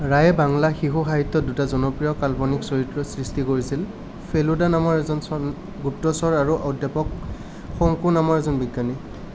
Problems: none marked